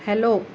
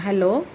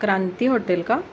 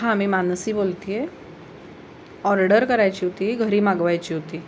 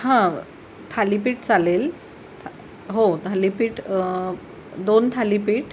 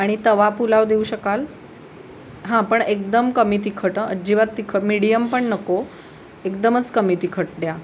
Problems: none marked